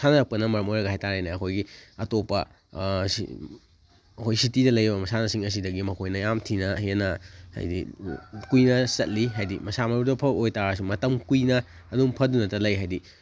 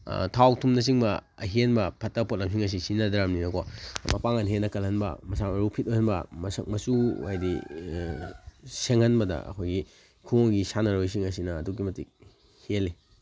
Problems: background sounds at intervals